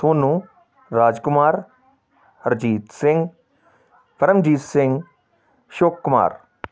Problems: continuous background conversations